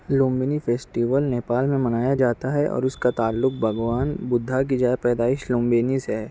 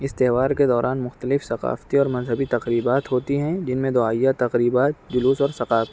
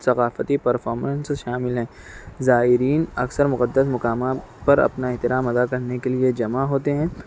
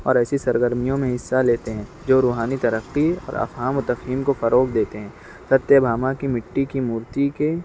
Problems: none marked